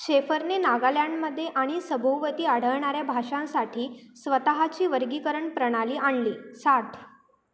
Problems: constant background noise